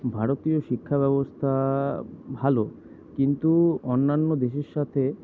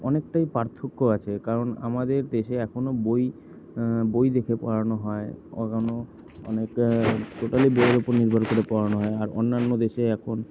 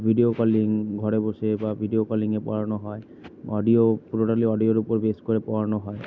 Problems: none marked